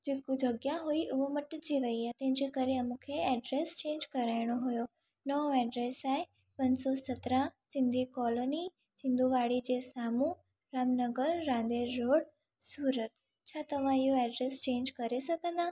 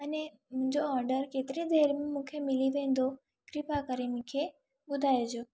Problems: none marked